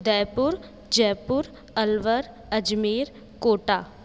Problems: constant background noise